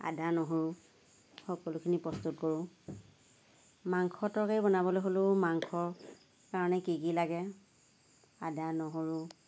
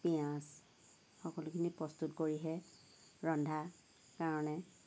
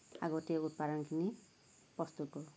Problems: none marked